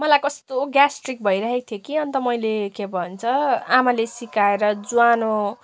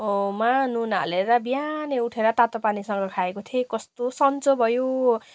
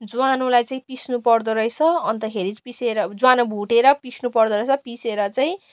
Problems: constant background noise